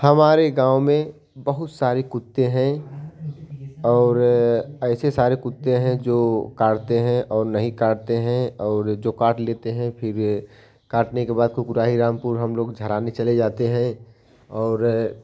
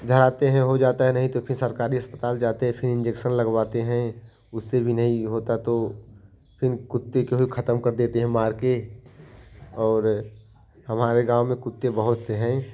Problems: none marked